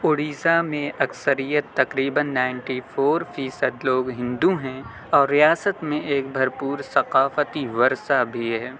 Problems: constant background noise